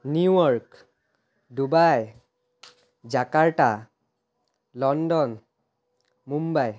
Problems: background sounds at intervals